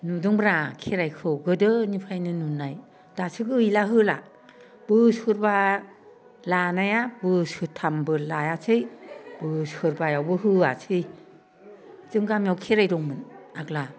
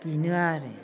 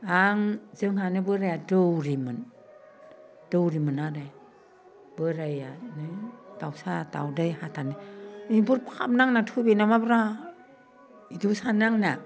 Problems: none marked